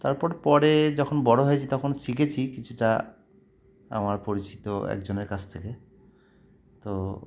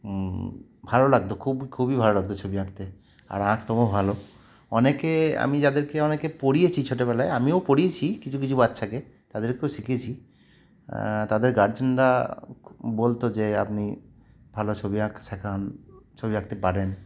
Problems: none marked